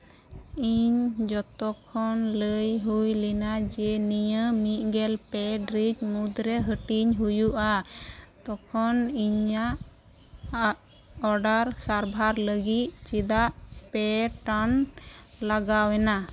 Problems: none marked